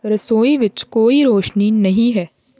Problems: none marked